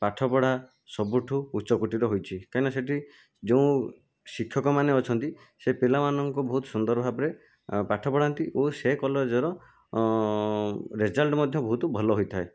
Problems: background sounds at intervals